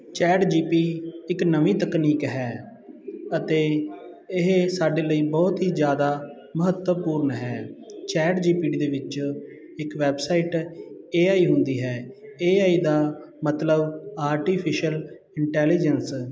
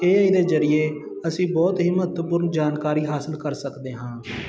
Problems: continuous background conversations